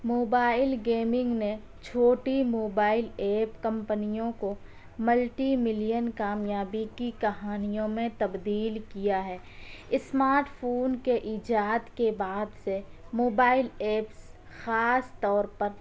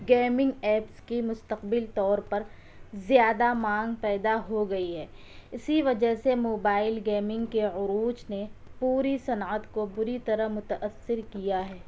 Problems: none marked